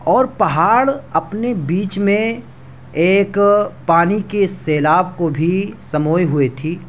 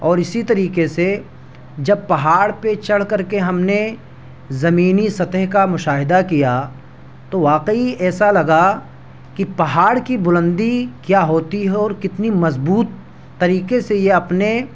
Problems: background sounds at intervals